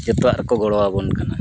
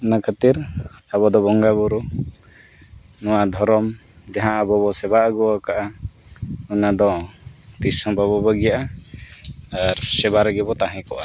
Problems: constant background noise